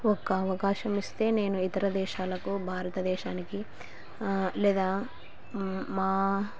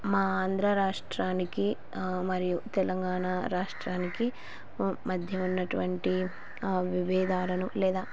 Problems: constant background noise